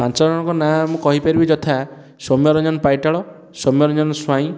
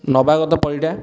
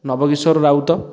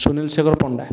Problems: none marked